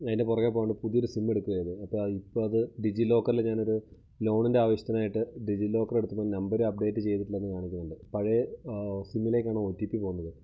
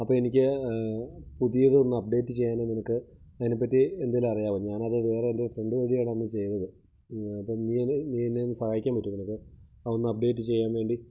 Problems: none marked